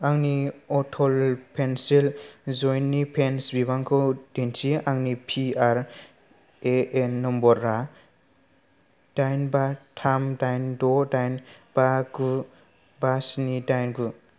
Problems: none marked